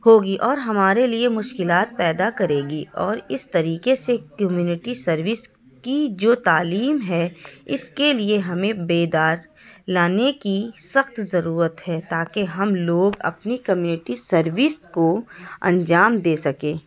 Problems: background sounds at intervals, background conversations at intervals